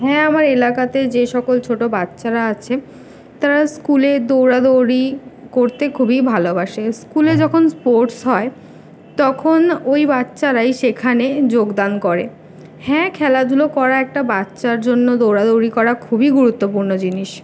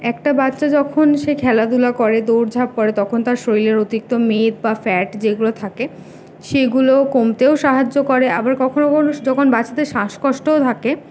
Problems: background sounds at intervals